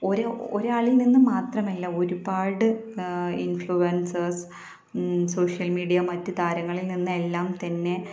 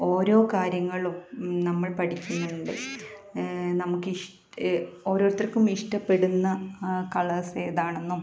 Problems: continuous background conversations, low volume